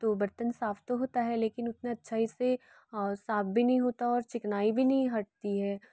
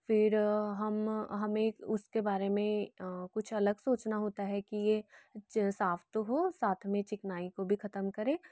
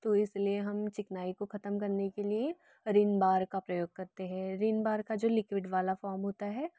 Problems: none marked